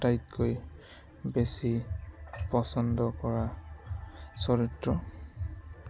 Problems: constant background noise, background conversations at intervals